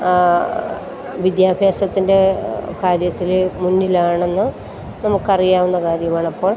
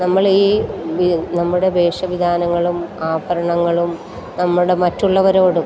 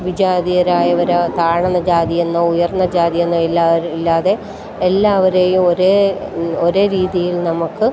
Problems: constant background noise